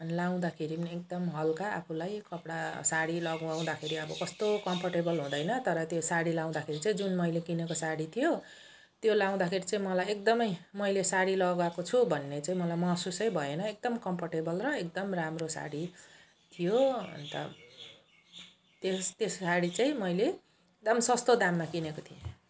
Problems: none marked